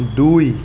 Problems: constant background noise